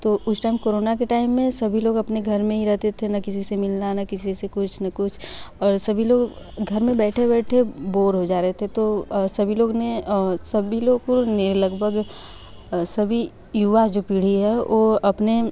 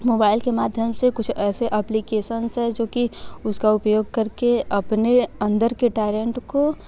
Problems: none marked